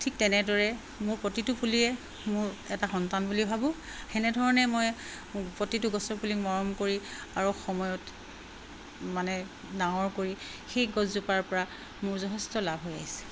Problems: constant background noise